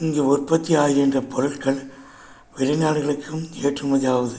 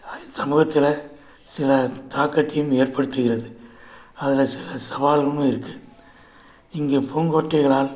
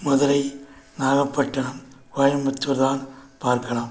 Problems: background sounds at intervals